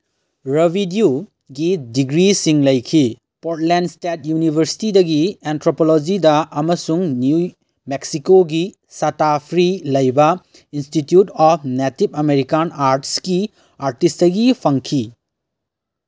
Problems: background sounds at intervals